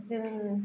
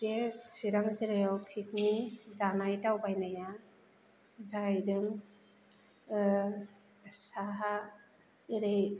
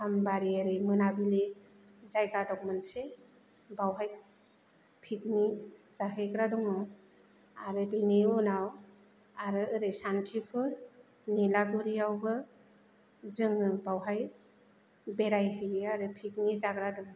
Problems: none marked